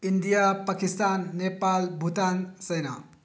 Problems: low volume